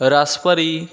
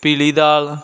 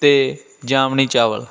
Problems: constant background noise